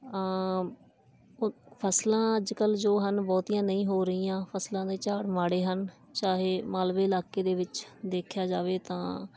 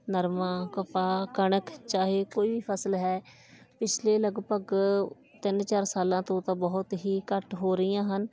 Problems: background sounds at intervals